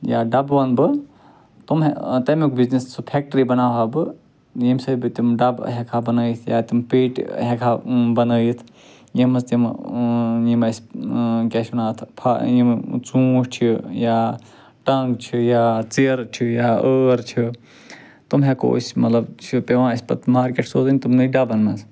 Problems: none marked